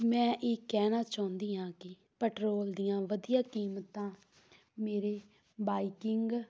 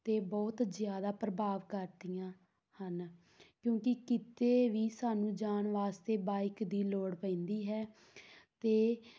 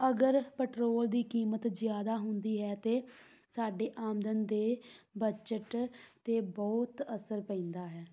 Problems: none marked